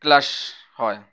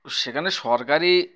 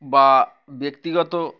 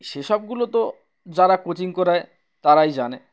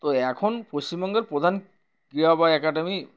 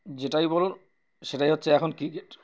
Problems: background sounds at intervals